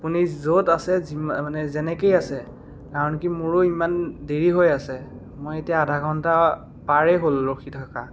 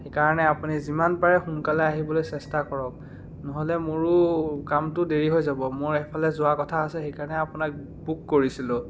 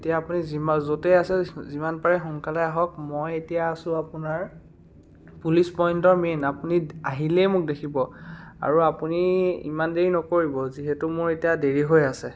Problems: none marked